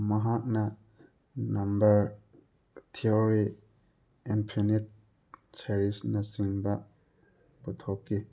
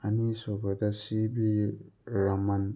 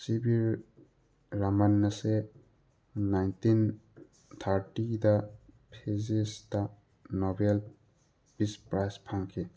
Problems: background sounds at intervals